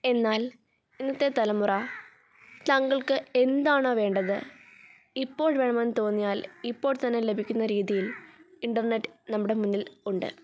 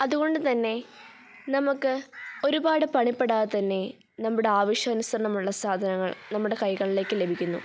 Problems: background sounds at intervals